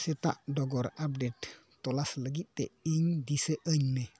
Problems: background sounds at intervals